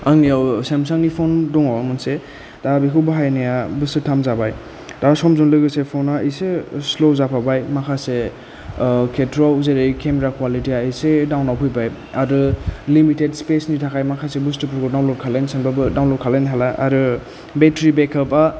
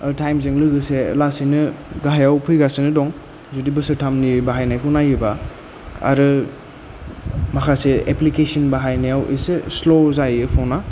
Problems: low volume